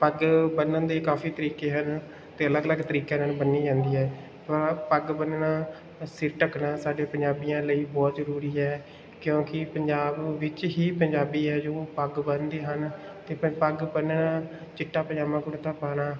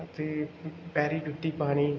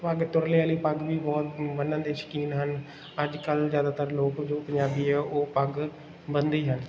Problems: background sounds at intervals